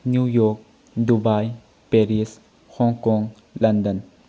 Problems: low volume